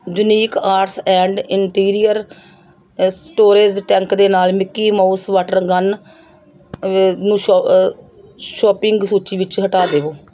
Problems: background sounds at intervals